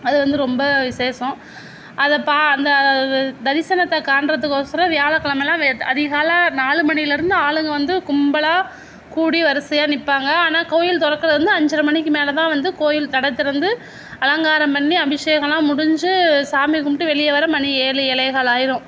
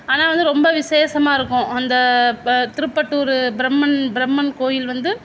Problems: background sounds at intervals